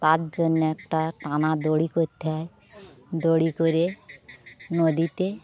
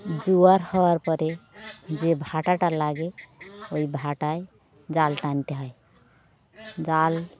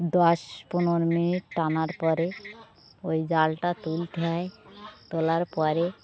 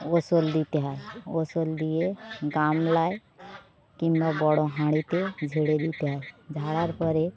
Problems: constant background noise